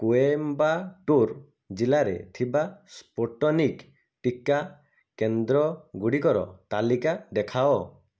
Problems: none marked